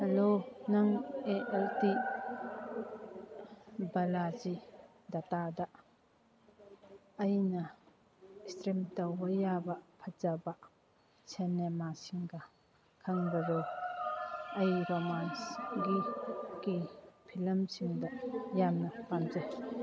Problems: background conversations at intervals